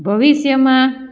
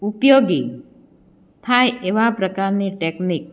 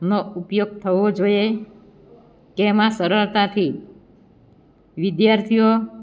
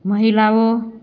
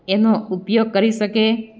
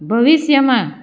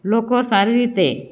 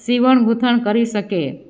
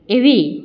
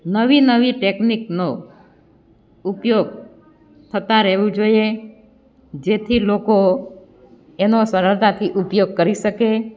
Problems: none marked